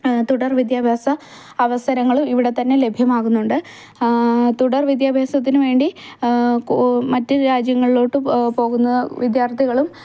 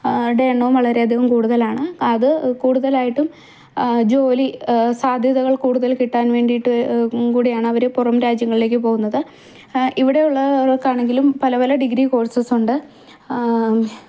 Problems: background sounds at intervals